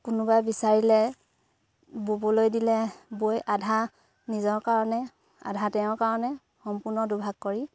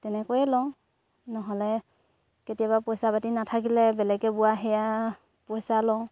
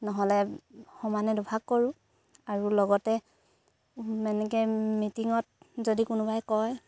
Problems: none marked